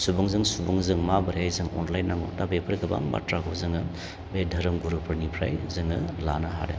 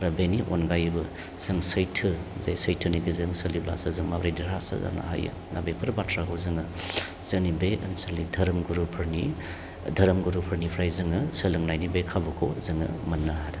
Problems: constant background noise